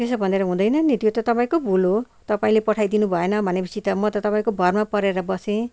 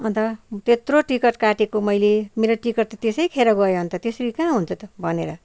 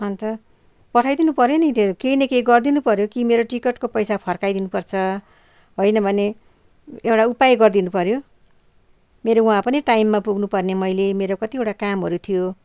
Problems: none marked